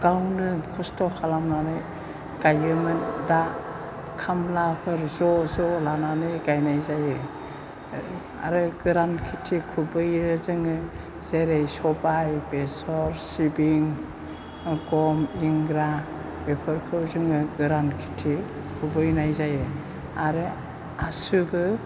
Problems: low volume